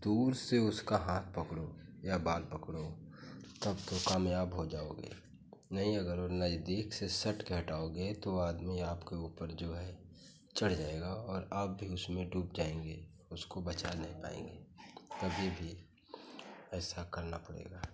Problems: constant background noise